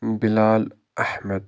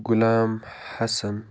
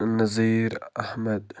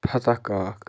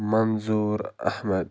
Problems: background sounds at intervals